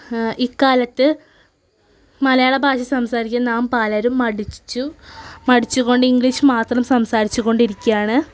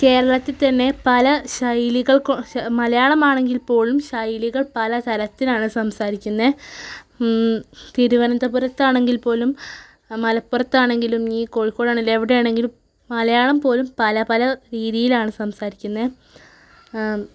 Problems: none marked